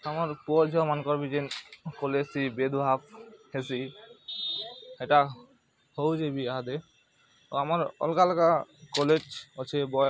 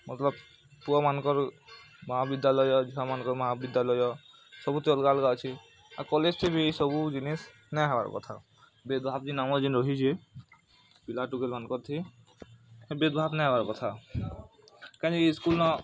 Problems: constant background noise